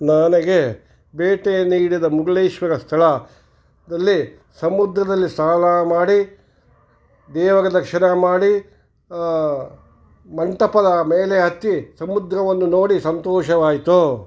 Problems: none marked